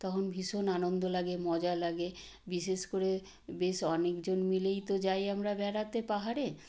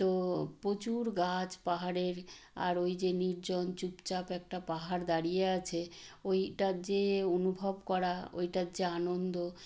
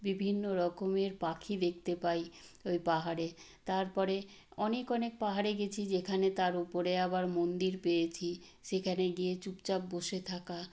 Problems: none marked